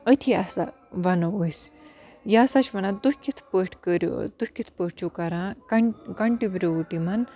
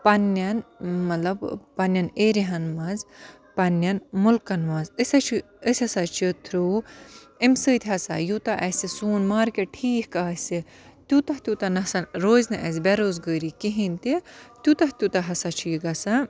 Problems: continuous background conversations